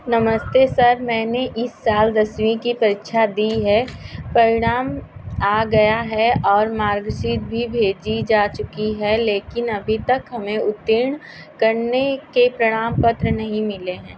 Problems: constant background noise